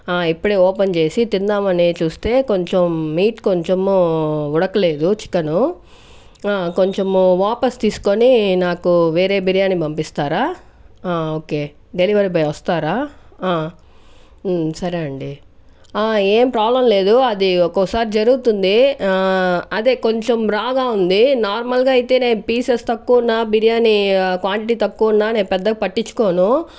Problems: none marked